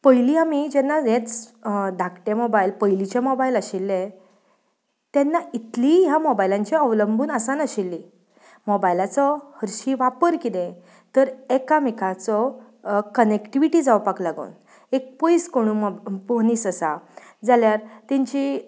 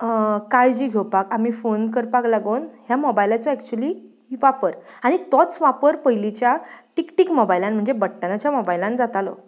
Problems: none marked